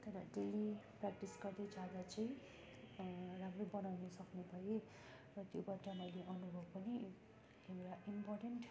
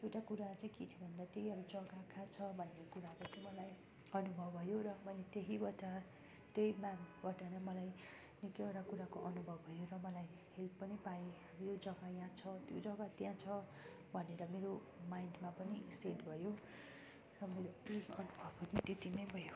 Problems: continuous background conversations